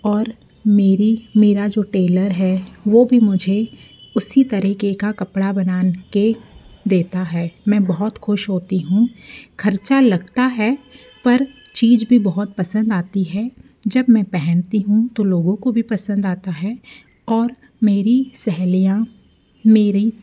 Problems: background sounds at intervals